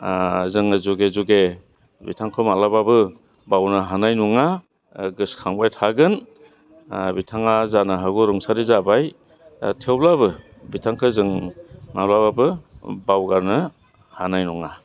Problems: low volume